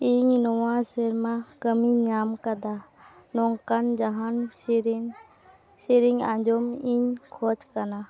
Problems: constant background noise, continuous background conversations